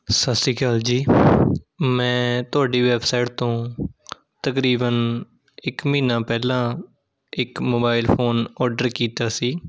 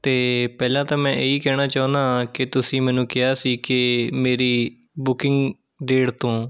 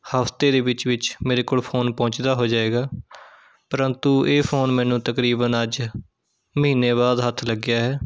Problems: none marked